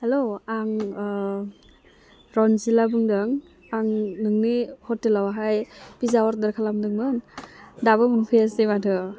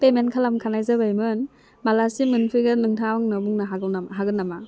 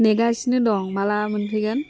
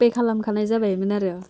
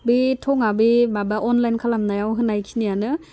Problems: constant background noise